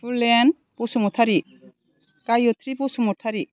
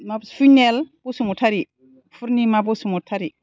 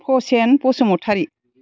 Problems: constant background noise